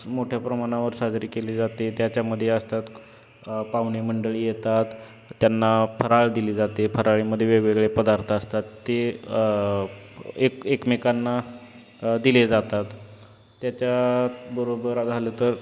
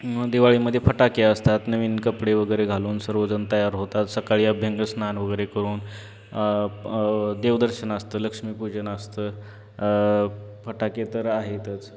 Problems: constant background noise